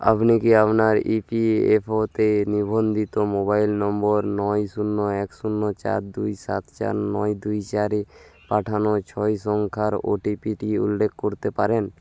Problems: none marked